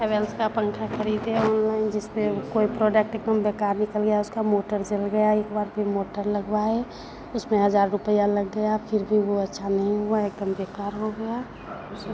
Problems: constant background noise, continuous background conversations